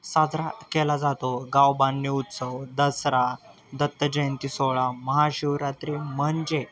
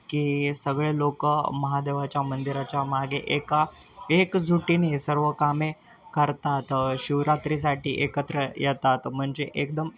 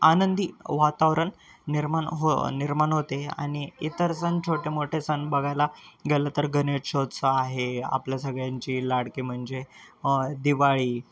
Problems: constant background noise, continuous background conversations